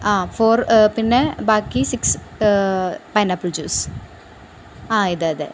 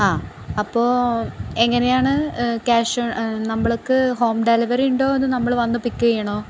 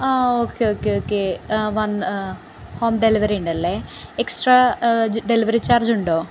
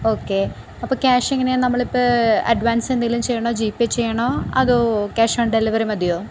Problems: constant background noise